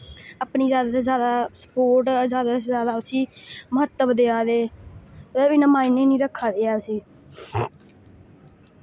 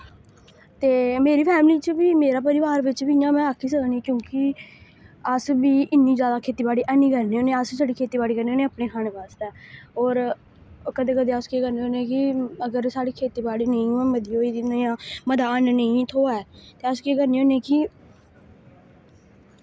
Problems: background sounds at intervals